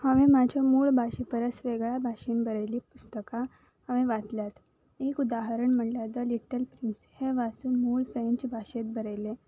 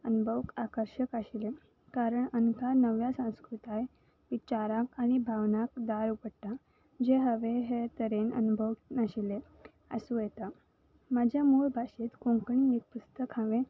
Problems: background sounds at intervals